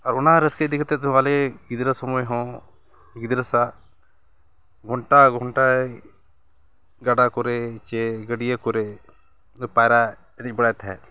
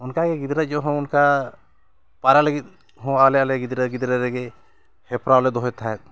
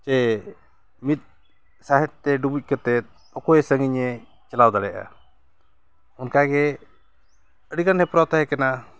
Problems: background sounds at intervals